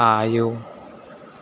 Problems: constant background noise